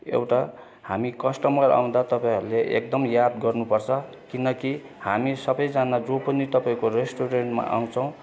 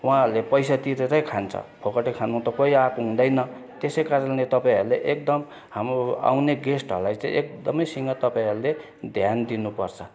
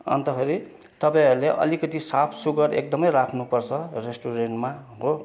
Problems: constant background noise, continuous background conversations